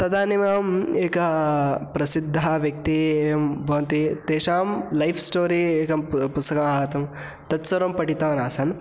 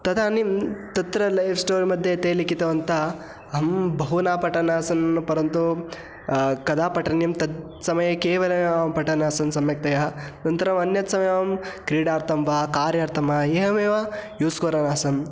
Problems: constant background noise